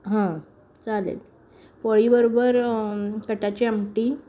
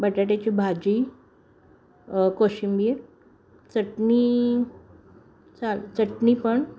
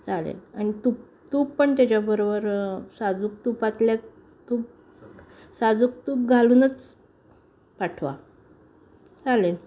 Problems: constant background noise, continuous background conversations